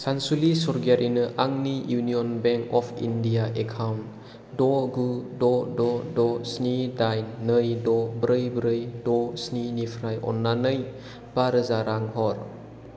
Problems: constant background noise